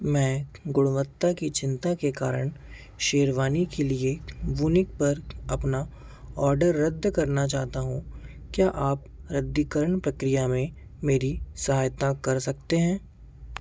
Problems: none marked